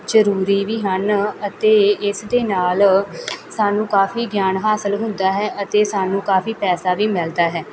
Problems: none marked